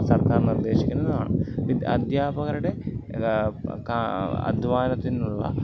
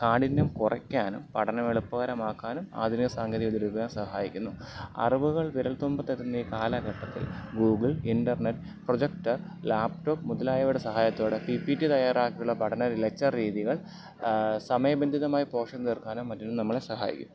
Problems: none marked